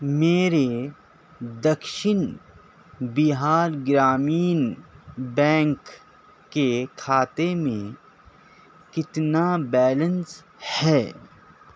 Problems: none marked